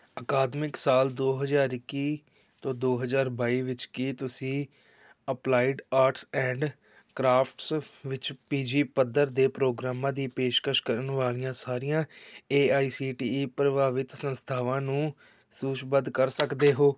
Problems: background sounds at intervals